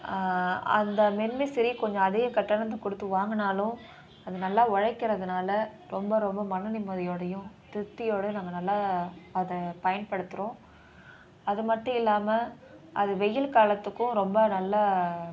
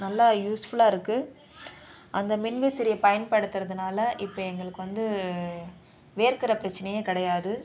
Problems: continuous background conversations